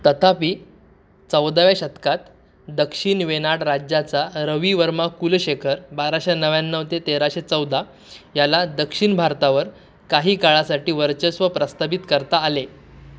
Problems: none marked